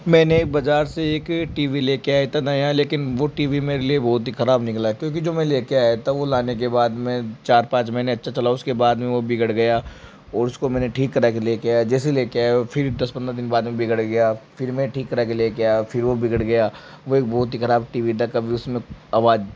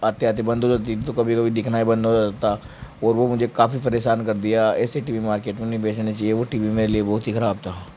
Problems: none marked